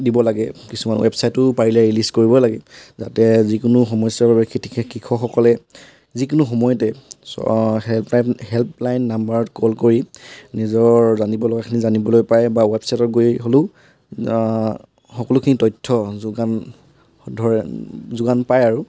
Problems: background sounds at intervals